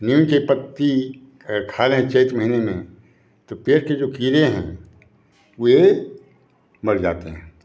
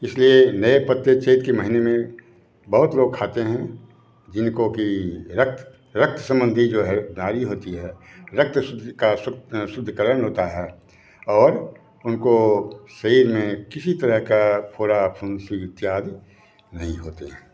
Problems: background sounds at intervals